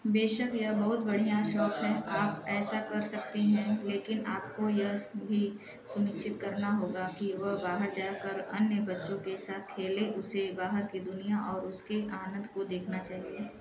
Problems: none marked